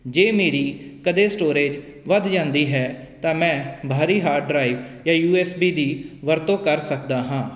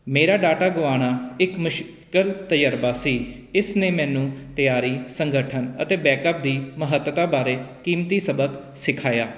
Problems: none marked